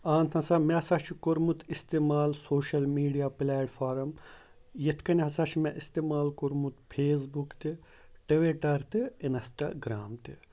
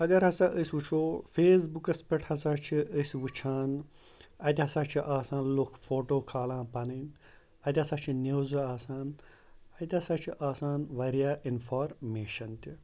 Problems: background sounds at intervals